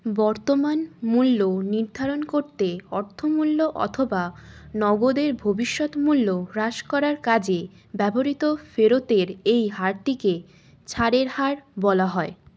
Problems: constant background noise